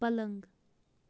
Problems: background sounds at intervals